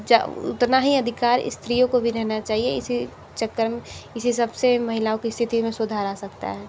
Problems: constant background noise